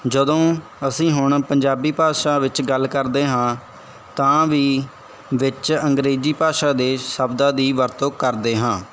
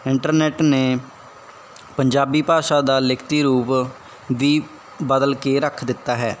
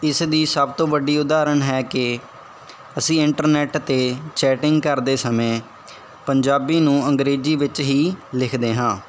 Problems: background sounds at intervals